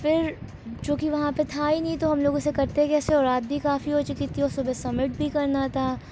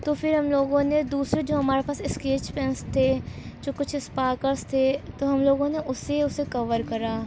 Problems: low volume